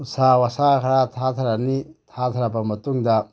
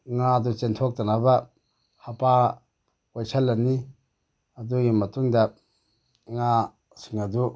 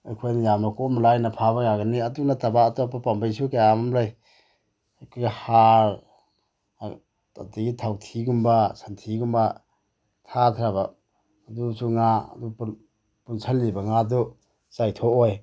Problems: none marked